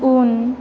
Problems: constant background noise